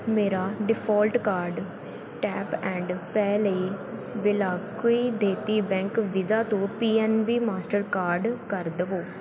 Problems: constant background noise